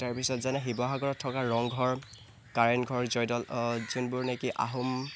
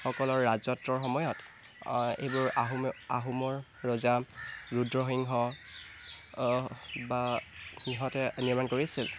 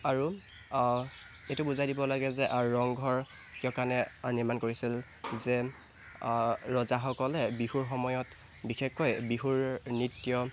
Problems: constant background noise